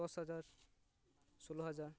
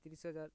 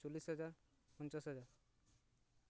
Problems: none marked